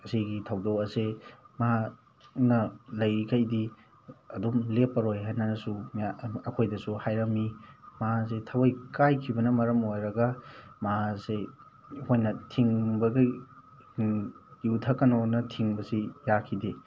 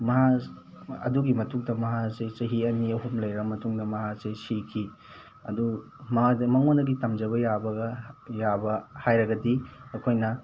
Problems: none marked